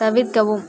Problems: none marked